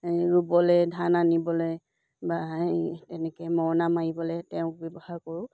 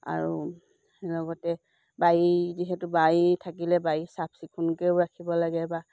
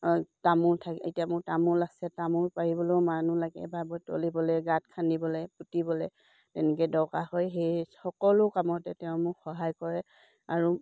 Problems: none marked